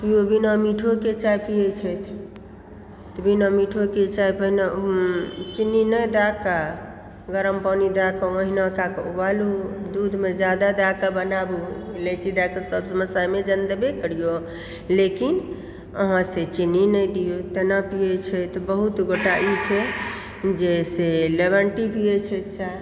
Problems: background sounds at intervals